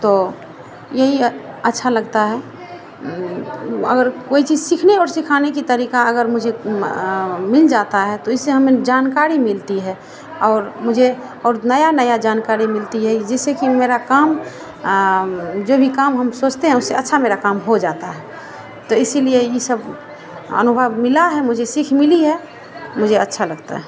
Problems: none marked